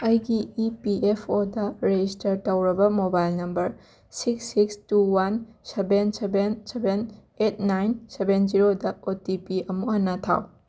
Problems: background sounds at intervals